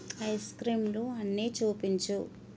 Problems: constant background noise